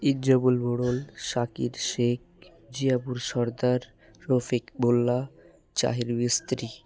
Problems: none marked